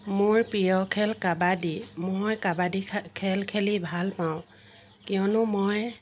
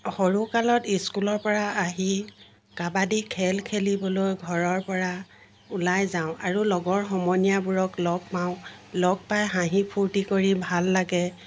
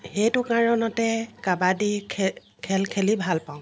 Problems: constant background noise